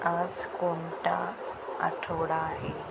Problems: constant background noise